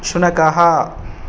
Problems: none marked